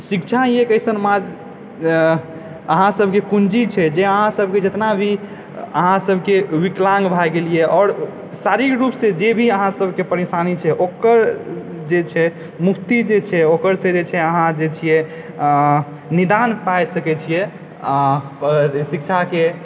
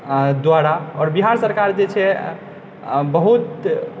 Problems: background sounds at intervals